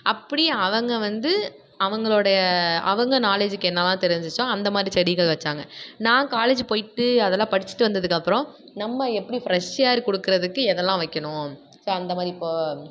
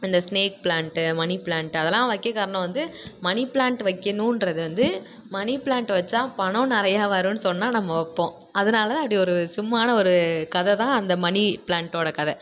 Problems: background sounds at intervals